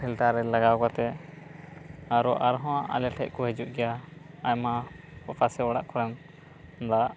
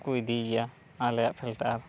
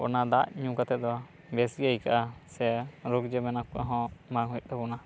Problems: none marked